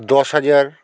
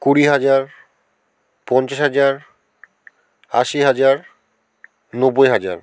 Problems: none marked